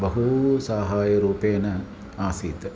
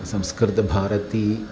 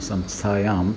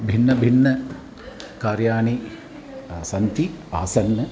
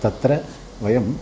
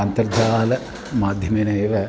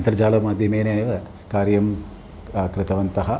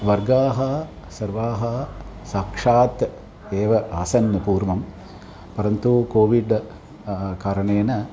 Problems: background sounds at intervals, continuous background conversations